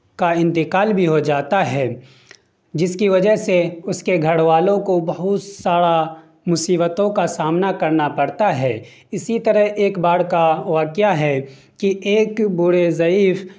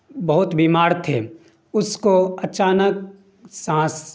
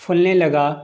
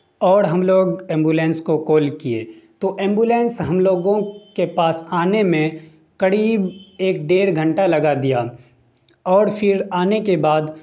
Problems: none marked